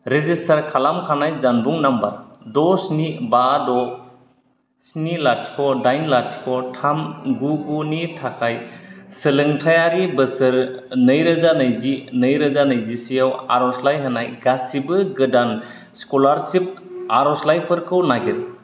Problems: none marked